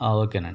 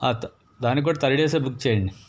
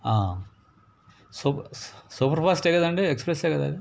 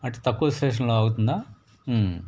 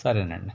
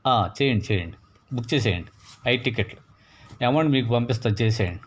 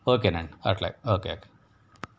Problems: none marked